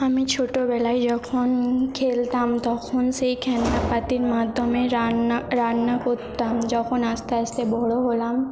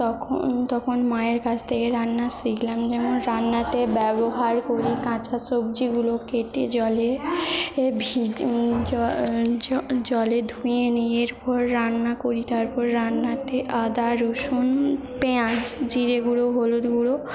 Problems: background sounds at intervals, background conversations at intervals